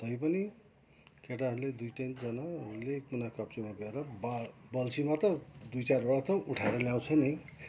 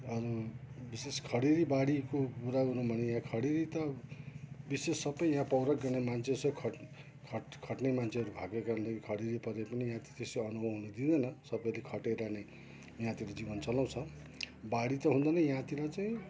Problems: background sounds at intervals